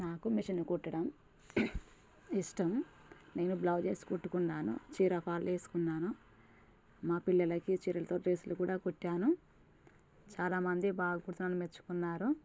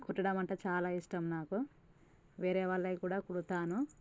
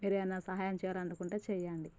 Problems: none marked